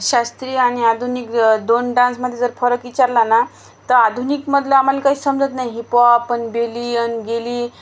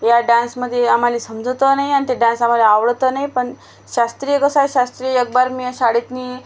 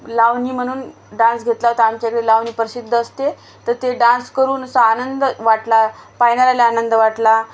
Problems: constant background noise